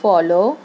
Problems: constant background noise